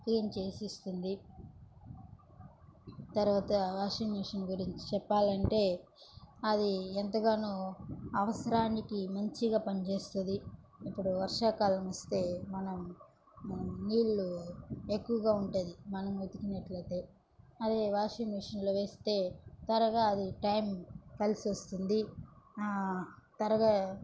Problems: low volume